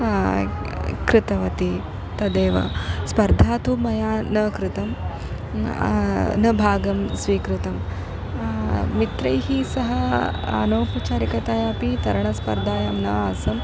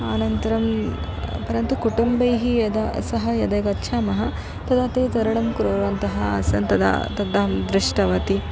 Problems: none marked